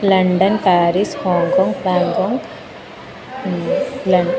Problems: constant background noise, continuous background conversations